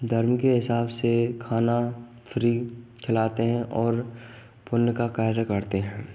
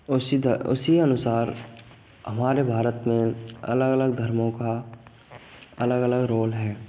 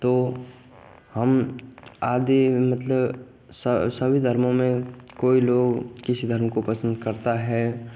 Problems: none marked